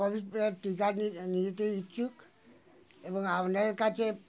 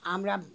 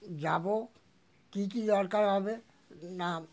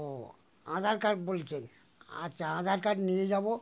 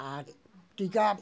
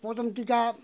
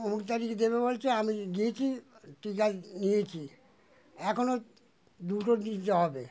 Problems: continuous background conversations